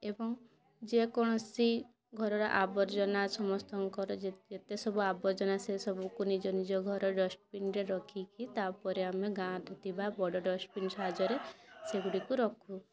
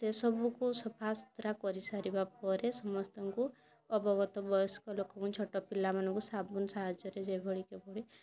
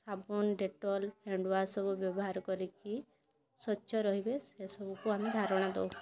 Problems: constant background noise, continuous background conversations